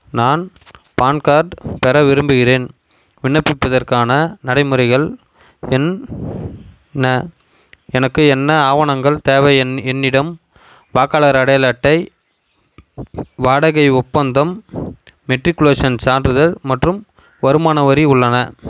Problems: constant background noise